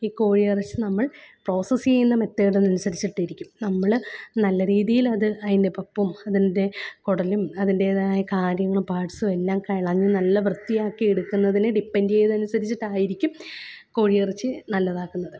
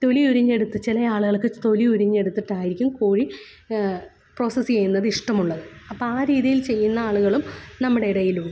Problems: background sounds at intervals, low volume